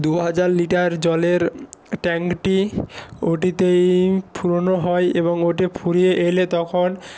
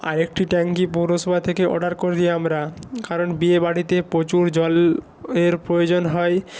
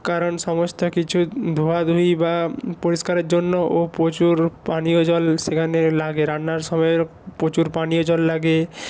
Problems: none marked